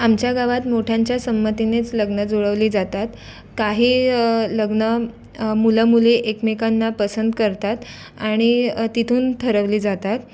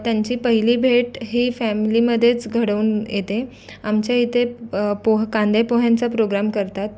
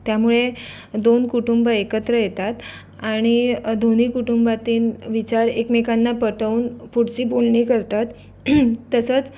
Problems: none marked